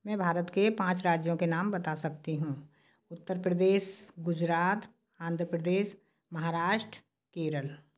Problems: none marked